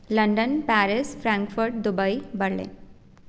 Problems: none marked